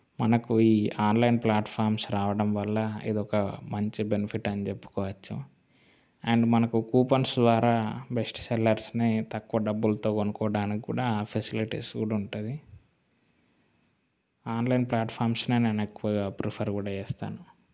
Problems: background sounds at intervals